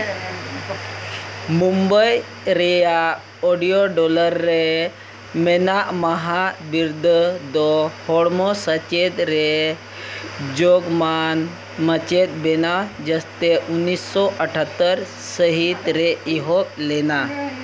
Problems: constant background noise